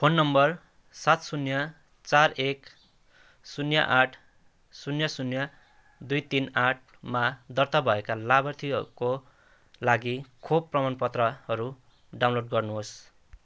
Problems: background sounds at intervals